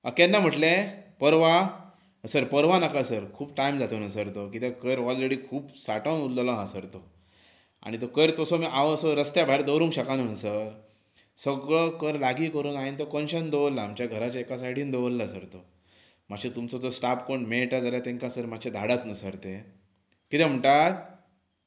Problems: background sounds at intervals